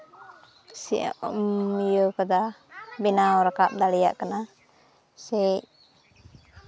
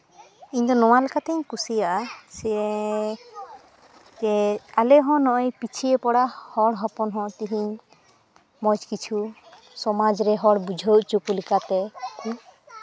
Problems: background sounds at intervals, background conversations at intervals